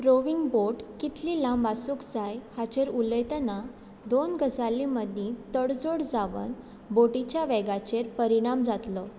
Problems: constant background noise